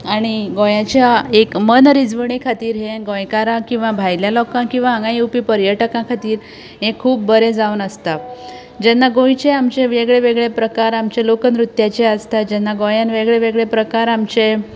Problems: constant background noise, continuous background conversations